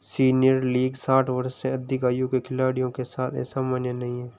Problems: constant background noise